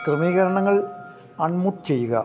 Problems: background sounds at intervals